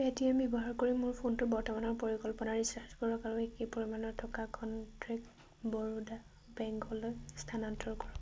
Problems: none marked